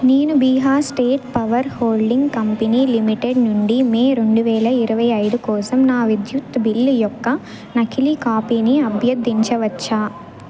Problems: none marked